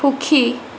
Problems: none marked